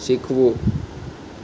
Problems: constant background noise